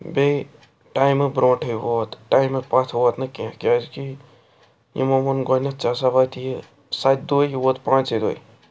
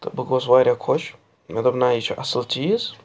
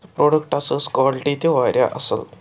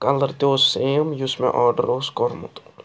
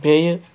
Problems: background sounds at intervals